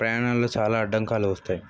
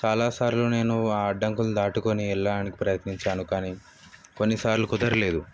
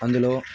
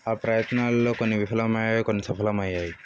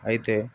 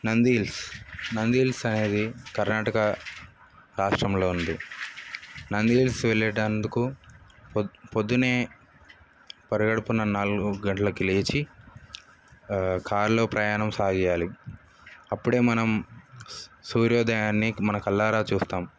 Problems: background sounds at intervals